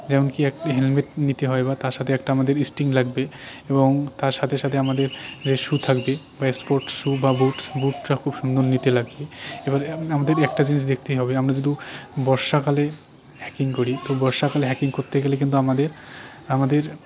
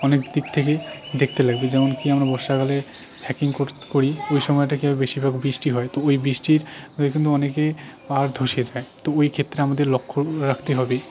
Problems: constant background noise, continuous background conversations